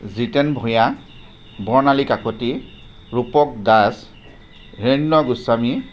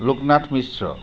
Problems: constant background noise